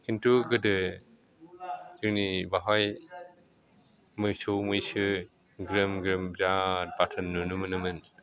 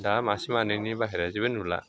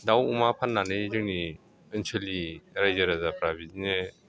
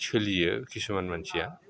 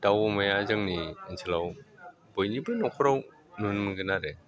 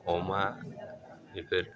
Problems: none marked